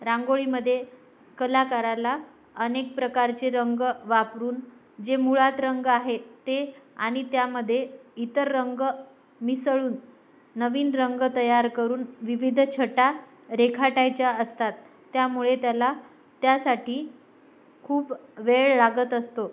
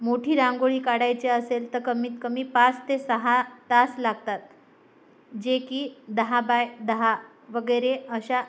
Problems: none marked